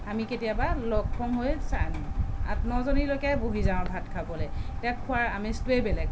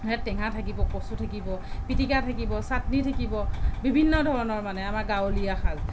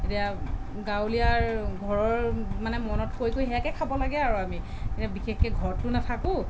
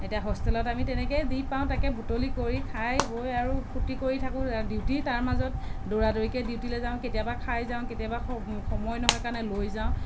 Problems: none marked